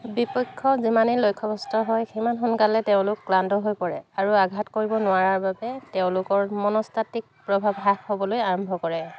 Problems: constant background noise